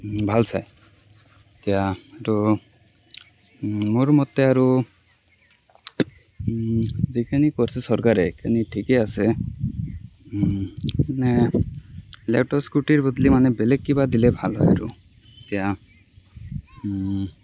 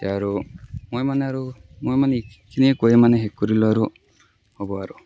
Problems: background sounds at intervals